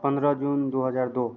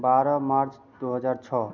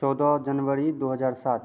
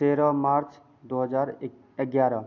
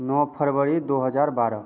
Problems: constant background noise